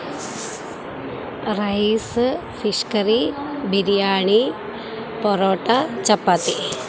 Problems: constant background noise